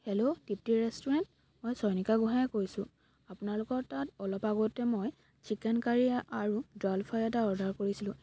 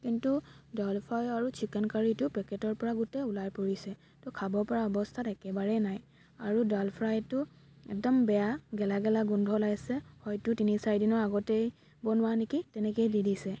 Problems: constant background noise